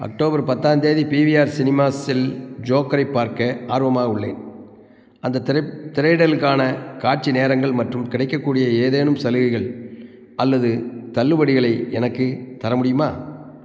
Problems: constant background noise